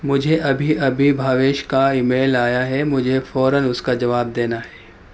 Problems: background sounds at intervals